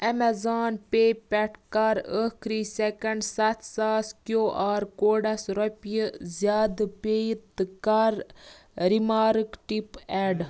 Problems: none marked